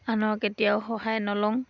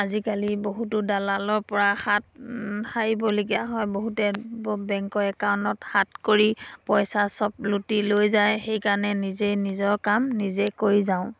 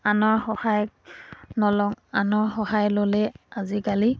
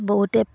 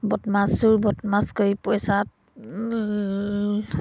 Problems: background sounds at intervals